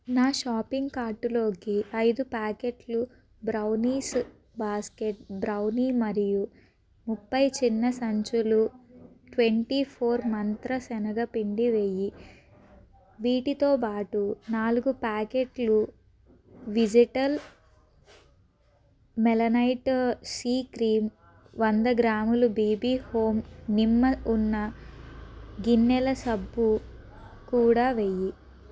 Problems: background sounds at intervals